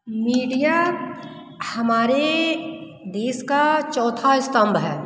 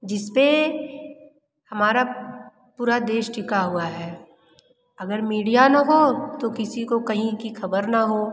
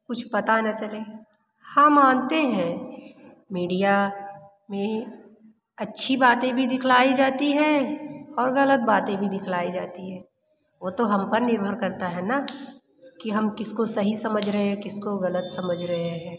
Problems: constant background noise, continuous background conversations, echo